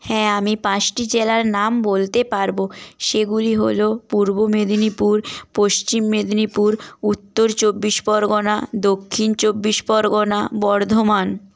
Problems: background sounds at intervals